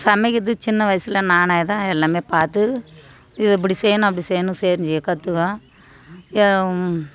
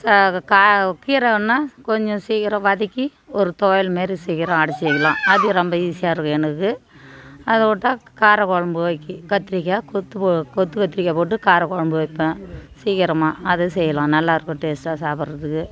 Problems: continuous background conversations